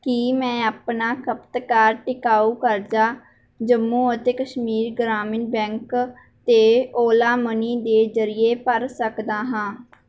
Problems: none marked